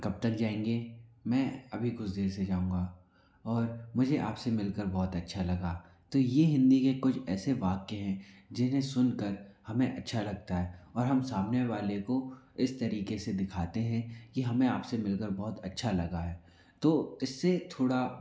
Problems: none marked